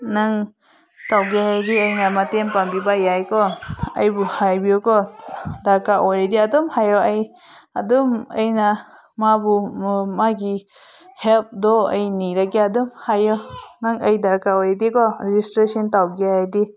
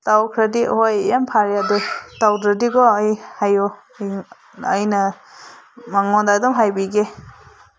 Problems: background conversations at intervals